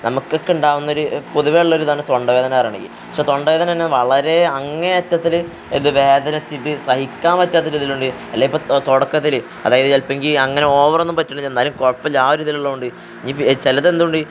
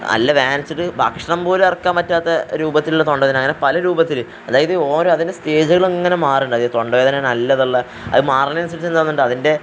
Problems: none marked